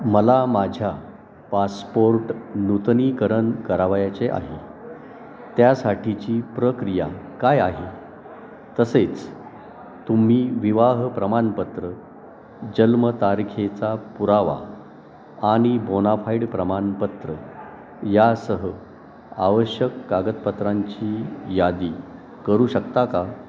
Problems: constant background noise, continuous background conversations, echo